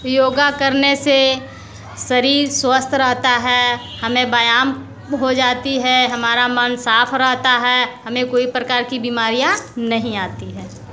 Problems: constant background noise